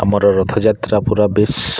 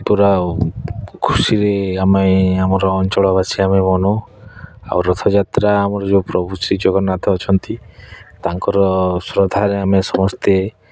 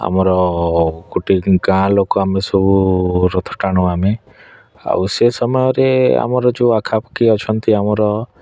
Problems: none marked